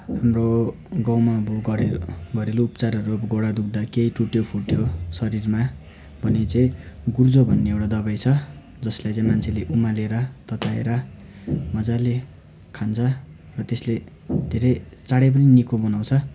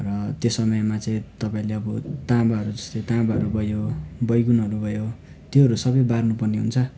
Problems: constant background noise